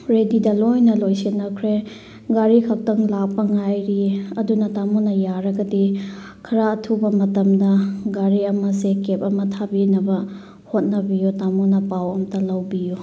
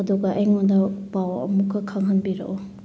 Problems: none marked